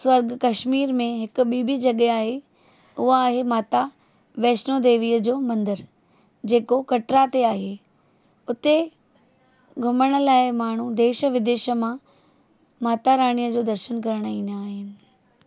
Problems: none marked